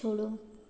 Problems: background sounds at intervals